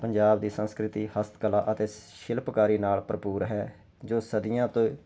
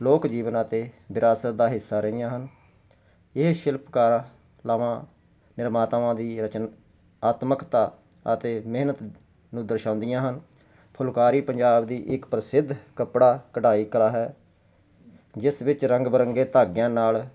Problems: constant background noise